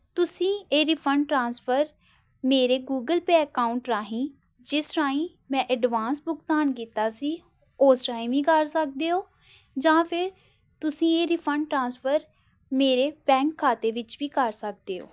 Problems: background sounds at intervals